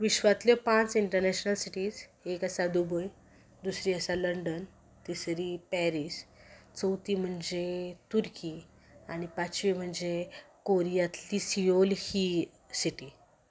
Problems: background sounds at intervals